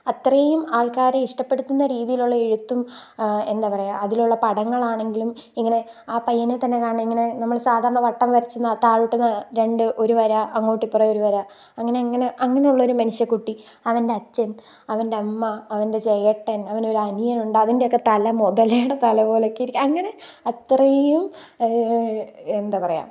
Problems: background sounds at intervals